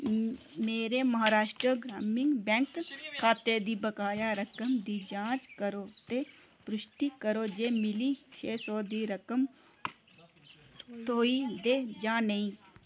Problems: constant background noise